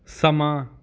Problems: none marked